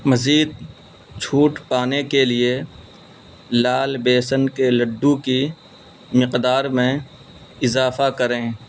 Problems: constant background noise